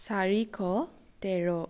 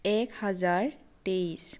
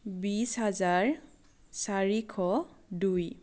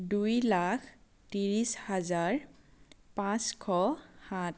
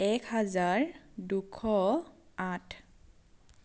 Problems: constant background noise